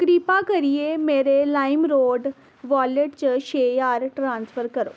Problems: constant background noise